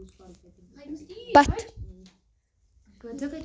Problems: background sounds at intervals